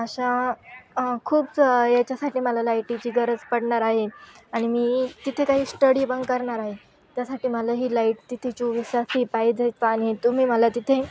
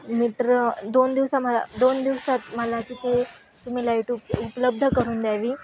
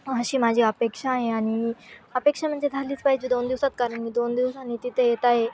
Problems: constant background noise, continuous background conversations